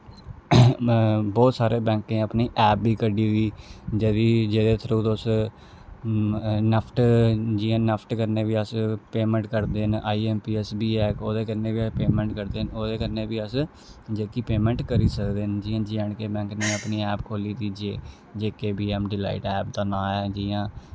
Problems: low volume